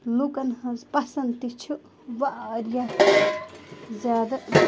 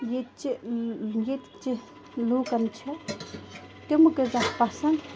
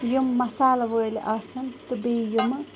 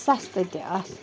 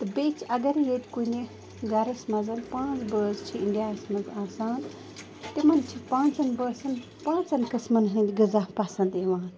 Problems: constant background noise, continuous background conversations